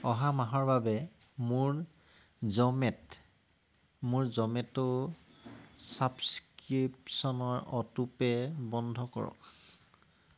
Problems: background sounds at intervals